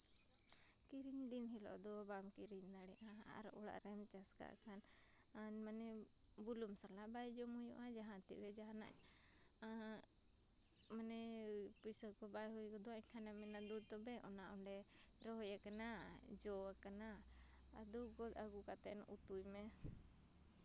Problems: background sounds at intervals, background conversations at intervals